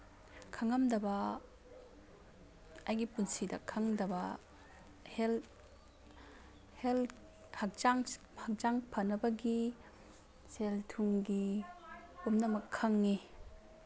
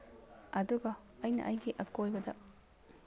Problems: background sounds at intervals